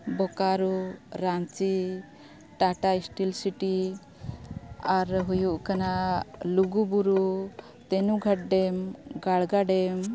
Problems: constant background noise, background conversations at intervals